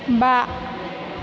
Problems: constant background noise